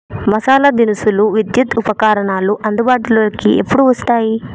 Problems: none marked